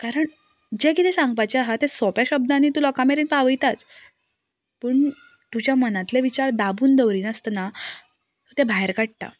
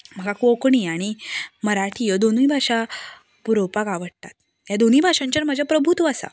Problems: none marked